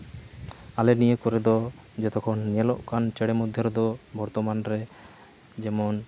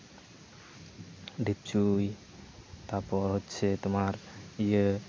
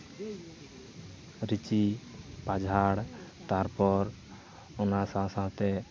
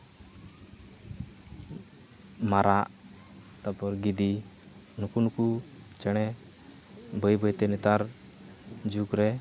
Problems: constant background noise, background conversations at intervals